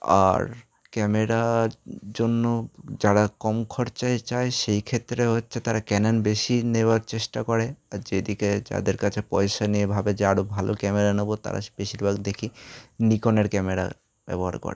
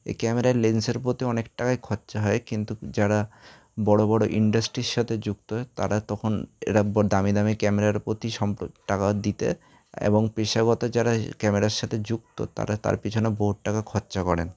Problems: background sounds at intervals